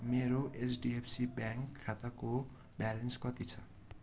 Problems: none marked